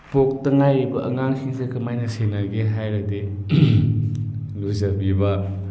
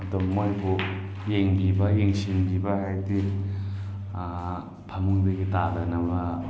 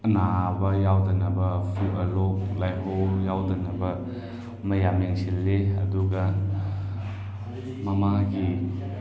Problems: none marked